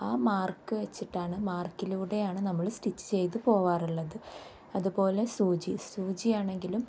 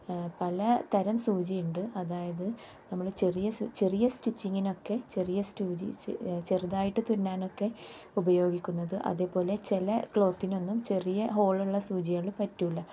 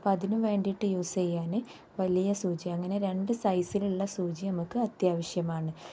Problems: low volume